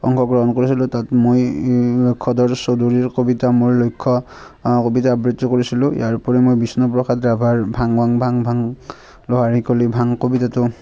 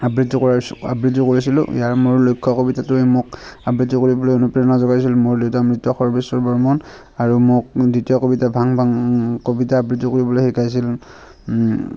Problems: constant background noise